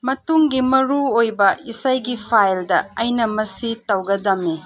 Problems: background sounds at intervals